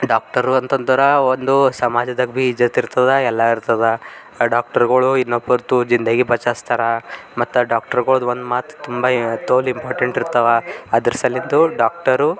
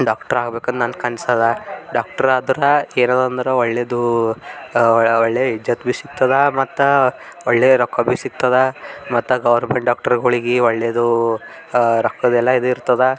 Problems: none marked